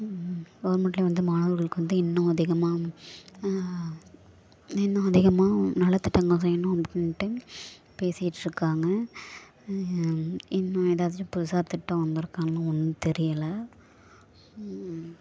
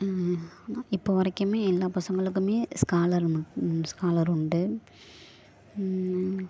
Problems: background sounds at intervals